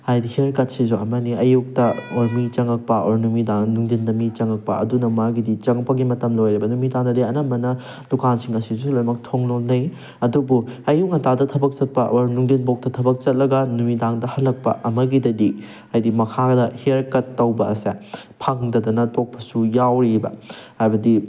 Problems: background sounds at intervals